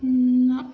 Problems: low volume